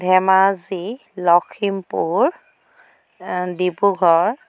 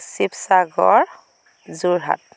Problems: constant background noise